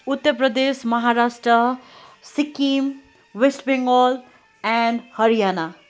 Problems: constant background noise